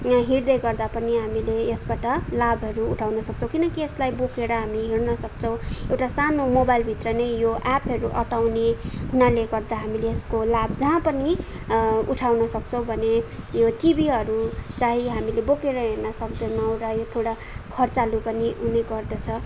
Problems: none marked